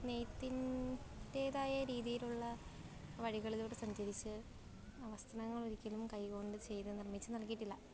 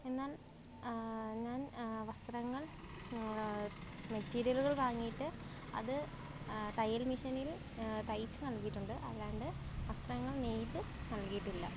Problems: background sounds at intervals, low volume